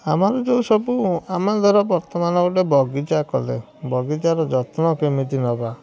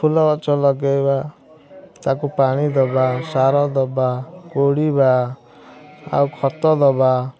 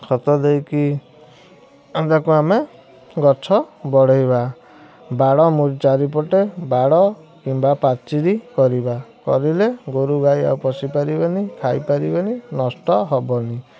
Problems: constant background noise